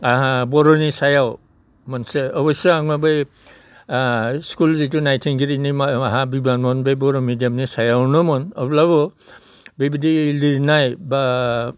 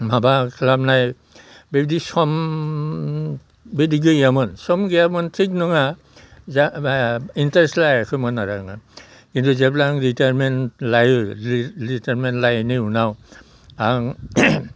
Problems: constant background noise